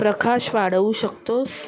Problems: continuous background conversations